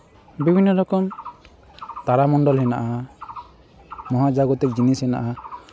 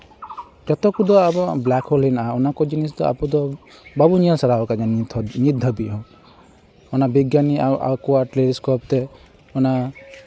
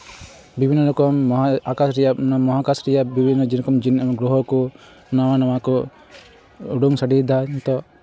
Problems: constant background noise